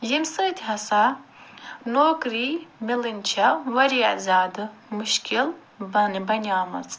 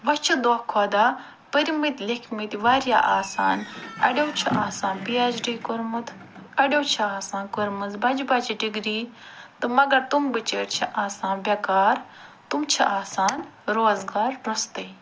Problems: none marked